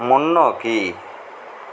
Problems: constant background noise